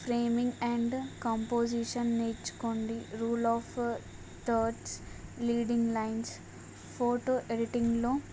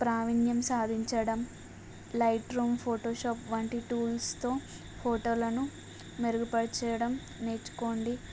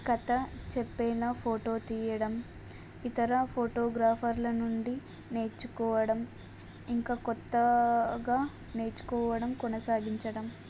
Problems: none marked